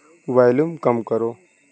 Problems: none marked